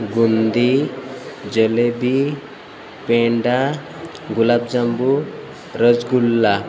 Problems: none marked